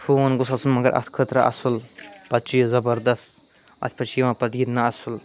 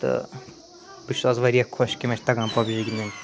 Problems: constant background noise